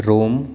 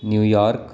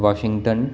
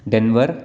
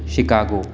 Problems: constant background noise